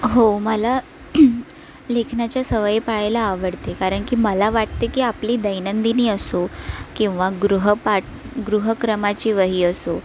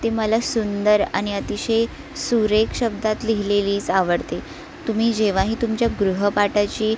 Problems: constant background noise, continuous background conversations